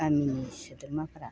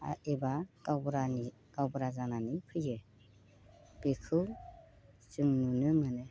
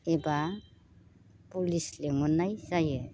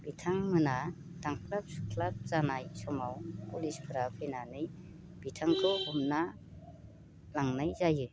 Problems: none marked